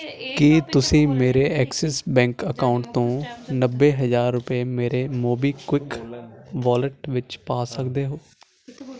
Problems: constant background noise